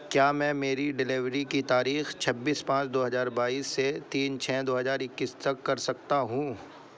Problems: constant background noise